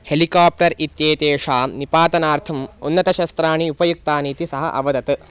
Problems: constant background noise